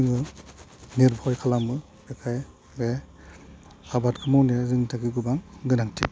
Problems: low volume